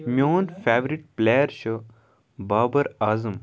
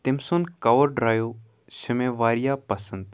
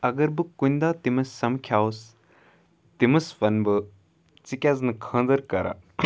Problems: background sounds at intervals